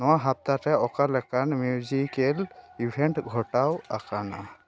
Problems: continuous background conversations